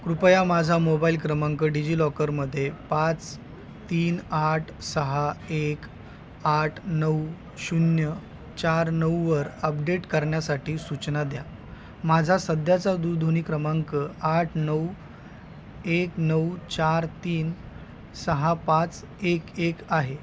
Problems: constant background noise